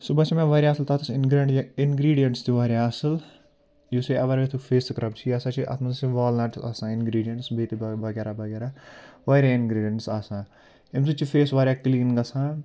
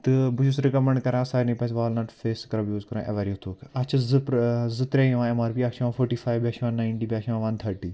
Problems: background sounds at intervals